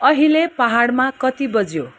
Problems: background sounds at intervals